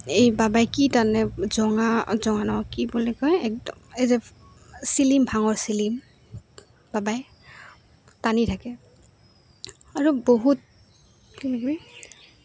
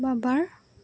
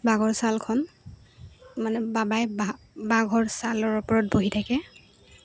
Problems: background sounds at intervals